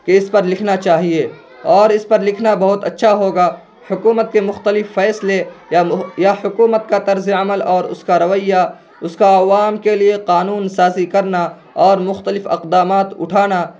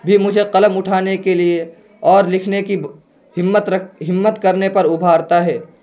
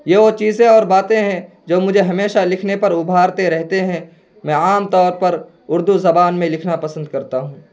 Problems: constant background noise